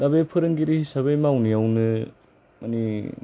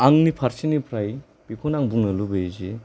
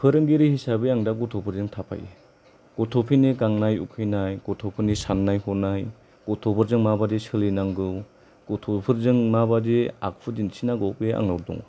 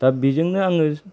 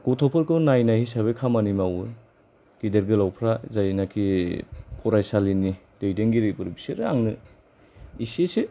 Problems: none marked